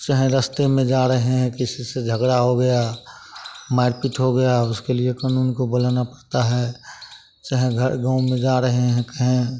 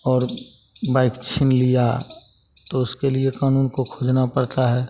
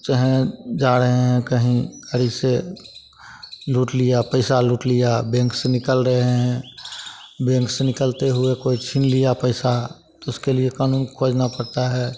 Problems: constant background noise, continuous background conversations